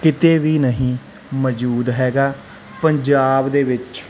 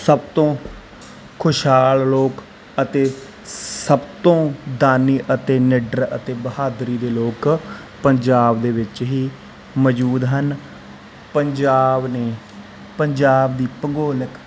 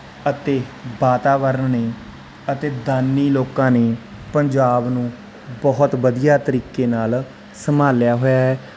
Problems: constant background noise